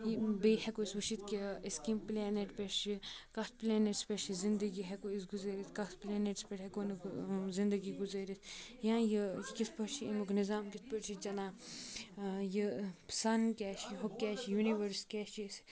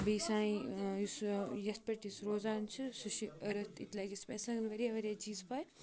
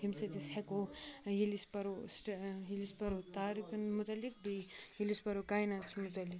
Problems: constant background noise, continuous background conversations